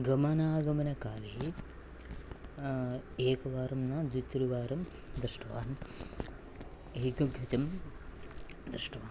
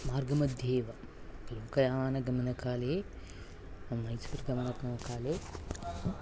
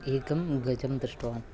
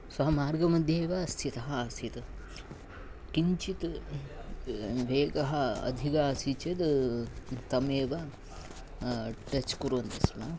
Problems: background sounds at intervals